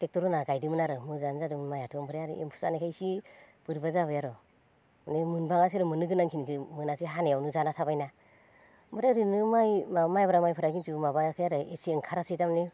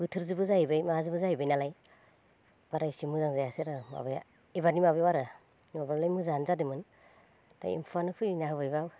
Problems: none marked